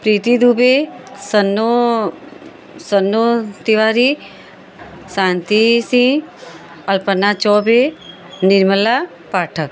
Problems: none marked